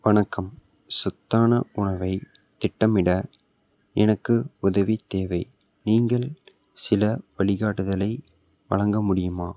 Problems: background sounds at intervals